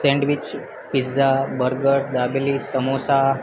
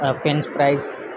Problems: constant background noise